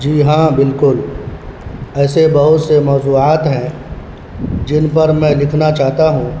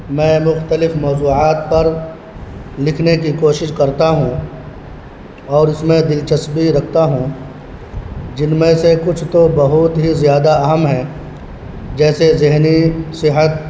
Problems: constant background noise